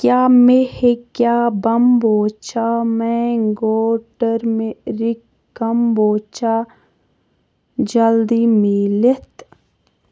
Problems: none marked